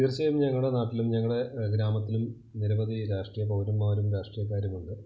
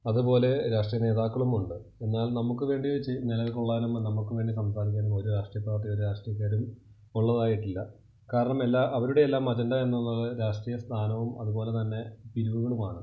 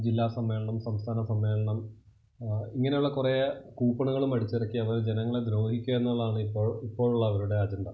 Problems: constant background noise, low volume